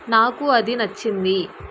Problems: constant background noise